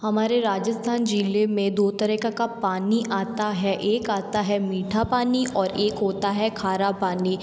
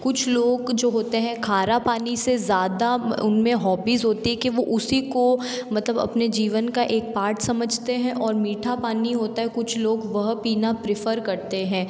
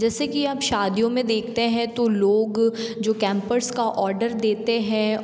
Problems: background sounds at intervals